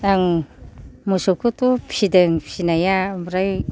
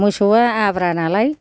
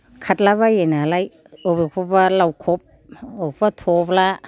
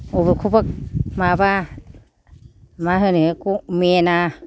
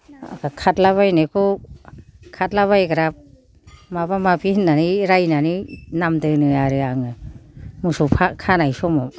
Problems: none marked